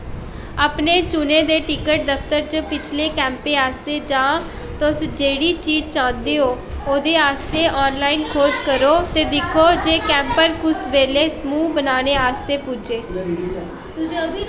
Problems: constant background noise, echo